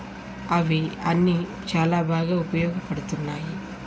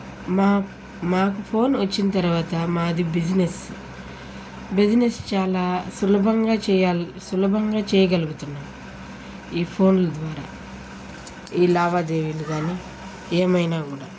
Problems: none marked